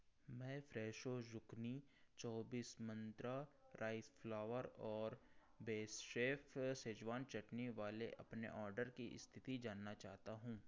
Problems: background sounds at intervals